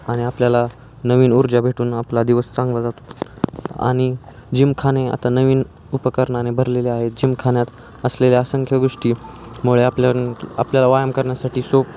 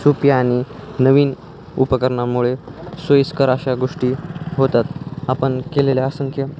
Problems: none marked